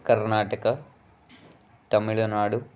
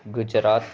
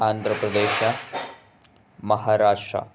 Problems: background sounds at intervals